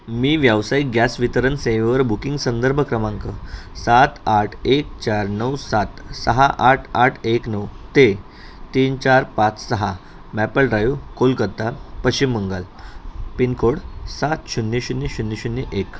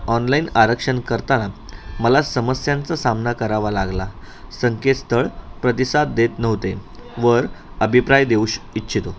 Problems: constant background noise, background conversations at intervals